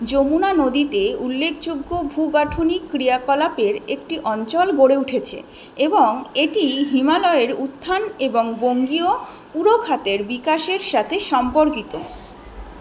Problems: constant background noise